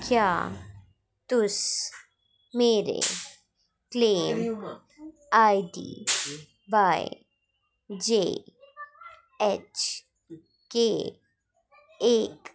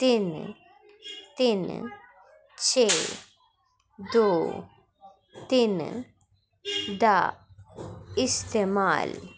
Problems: constant background noise